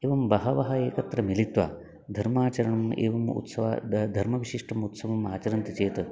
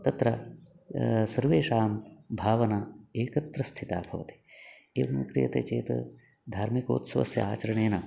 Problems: background sounds at intervals